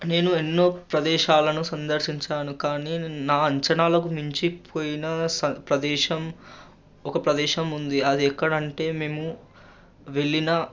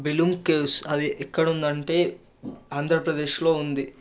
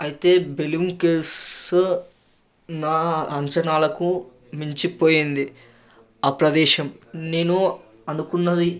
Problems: constant background noise